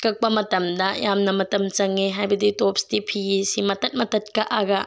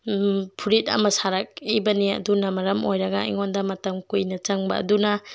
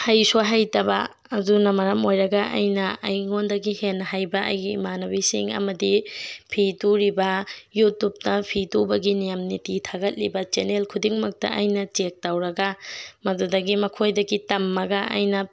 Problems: background sounds at intervals